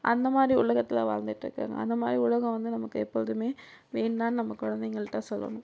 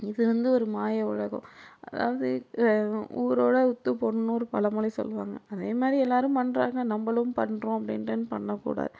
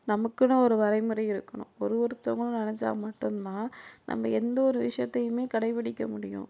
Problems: none marked